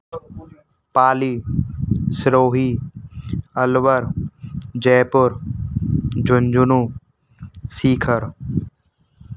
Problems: constant background noise